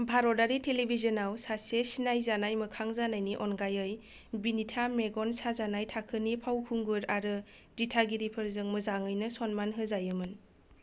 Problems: low volume